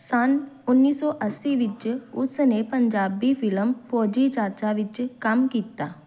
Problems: background sounds at intervals